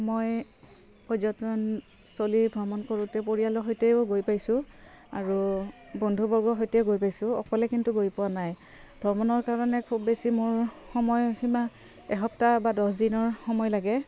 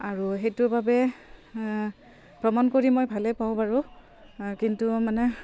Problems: none marked